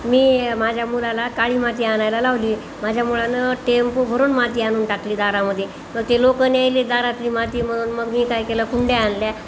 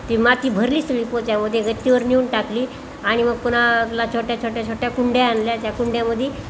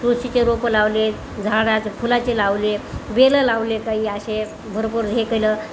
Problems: none marked